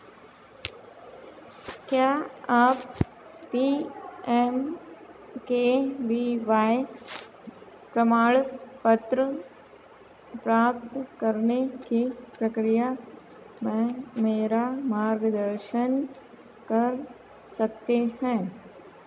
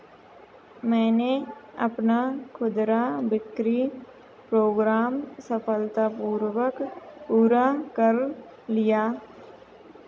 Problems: constant background noise